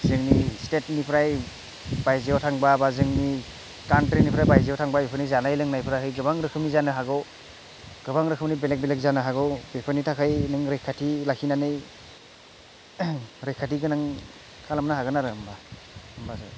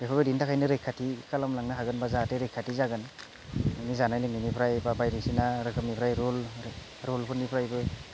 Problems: none marked